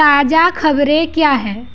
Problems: background sounds at intervals